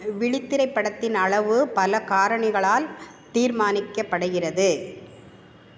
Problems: constant background noise